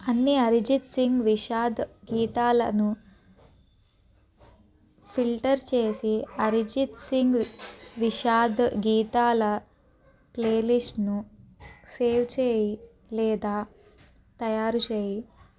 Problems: background sounds at intervals